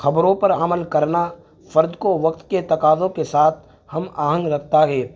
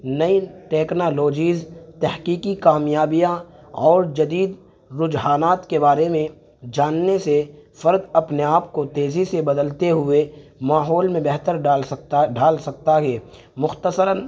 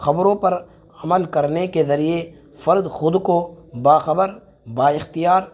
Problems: constant background noise